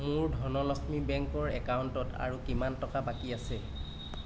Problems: none marked